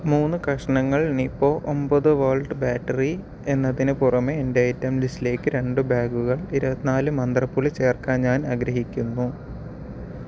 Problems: none marked